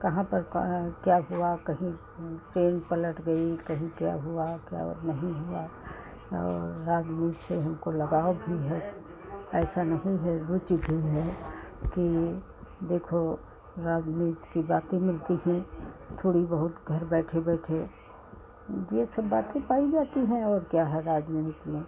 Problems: constant background noise